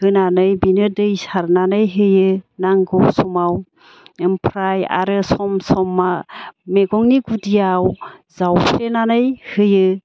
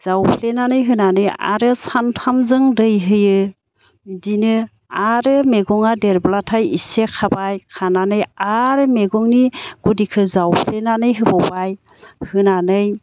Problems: none marked